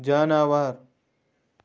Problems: background sounds at intervals